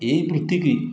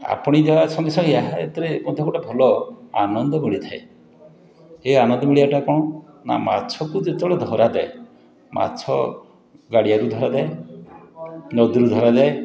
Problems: background conversations at intervals